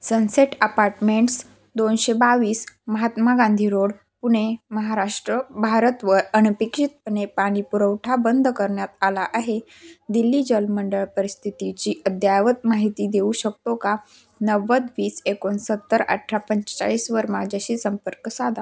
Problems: none marked